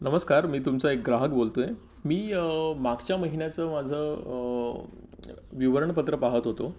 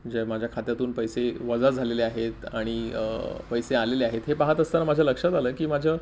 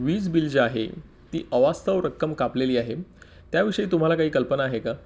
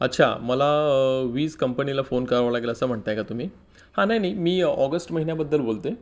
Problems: none marked